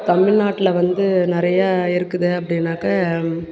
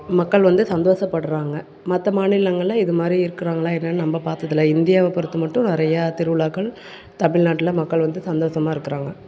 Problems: background conversations at intervals